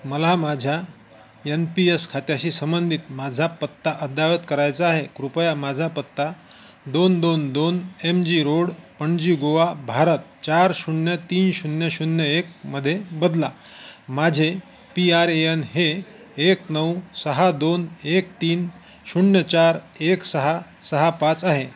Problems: constant background noise